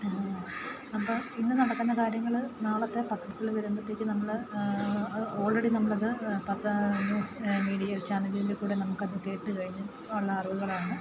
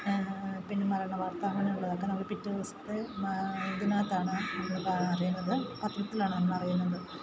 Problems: constant background noise, low volume